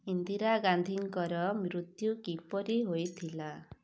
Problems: none marked